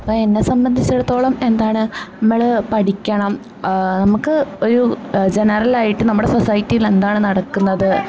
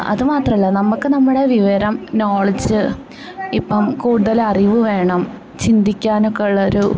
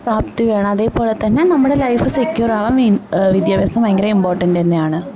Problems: background conversations at intervals